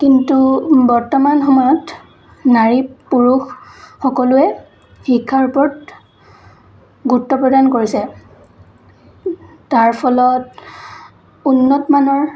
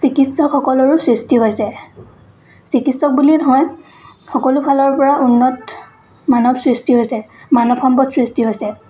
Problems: constant background noise, continuous background conversations